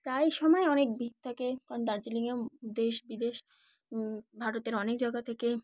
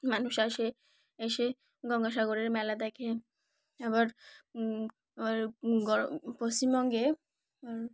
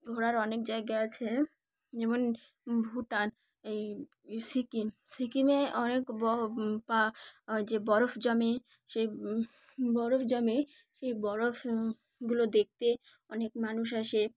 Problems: background sounds at intervals, background conversations at intervals